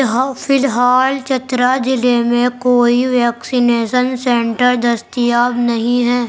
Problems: background conversations at intervals